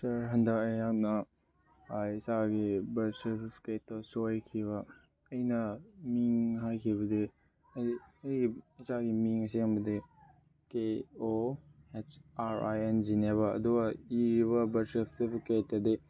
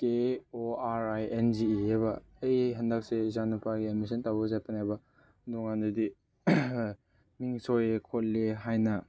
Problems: none marked